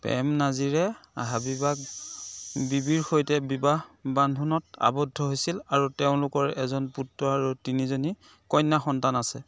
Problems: constant background noise, continuous background conversations